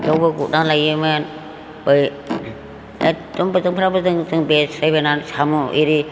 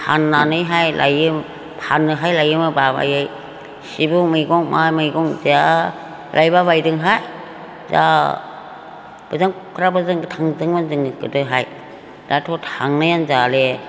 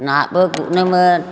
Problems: constant background noise